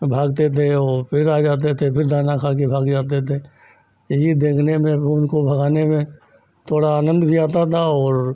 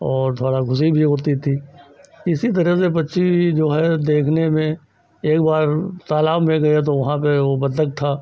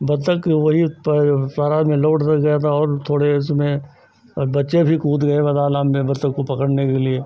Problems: none marked